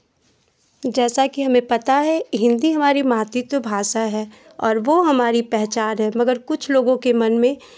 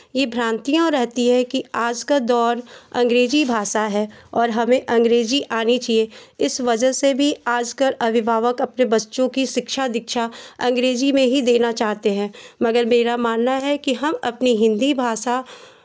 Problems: constant background noise